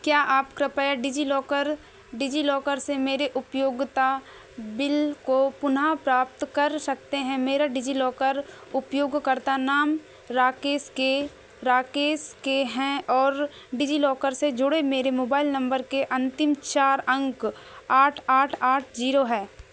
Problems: none marked